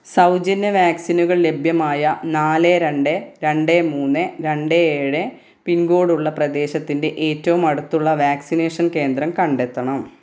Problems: none marked